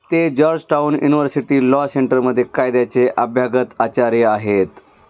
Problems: constant background noise